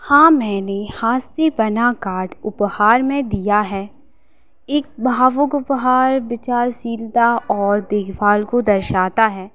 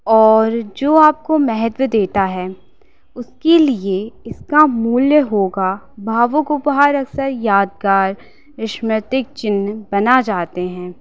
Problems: constant background noise